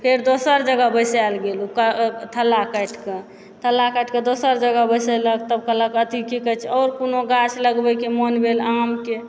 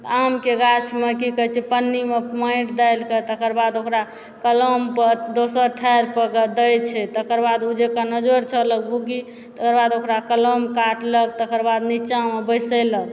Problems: background sounds at intervals